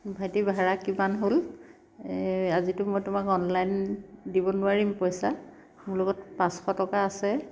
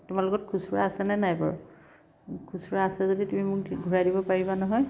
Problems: none marked